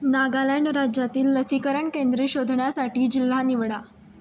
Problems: background sounds at intervals